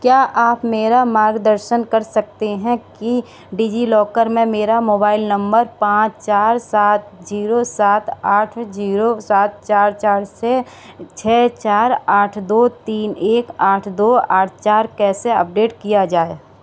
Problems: background sounds at intervals